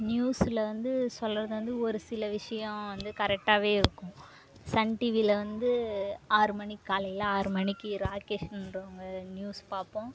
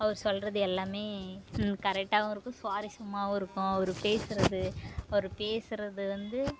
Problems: background sounds at intervals